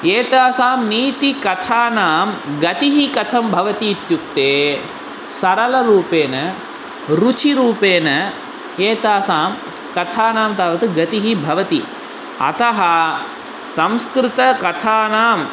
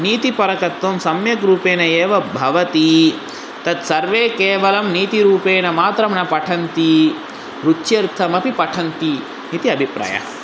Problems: constant background noise